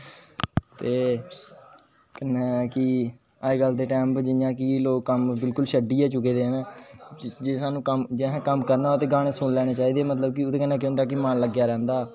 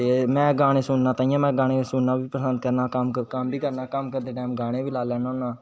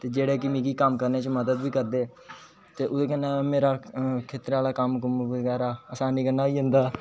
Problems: constant background noise